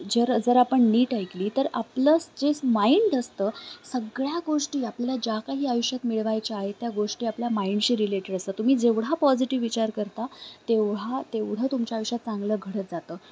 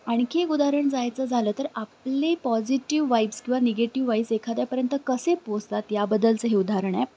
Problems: constant background noise, background conversations at intervals